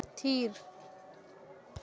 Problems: none marked